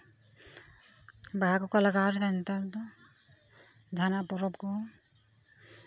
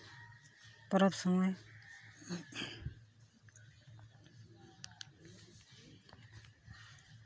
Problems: constant background noise, background conversations at intervals